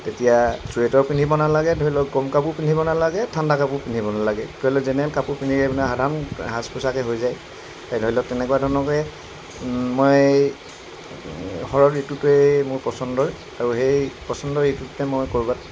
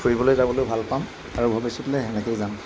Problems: constant background noise